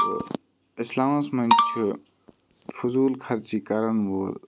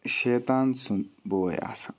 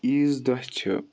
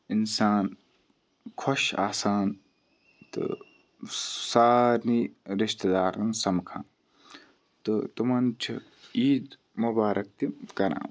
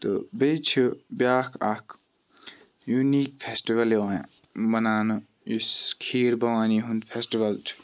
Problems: background sounds at intervals, background conversations at intervals